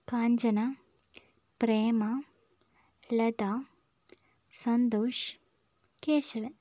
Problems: low volume